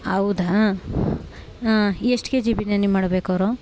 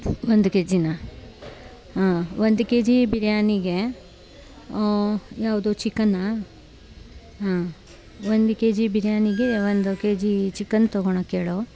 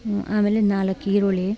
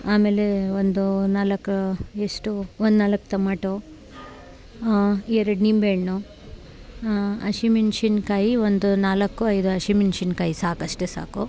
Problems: background sounds at intervals